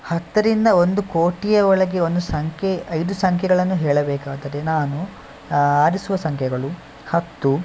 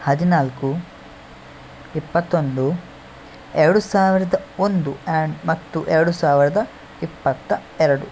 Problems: constant background noise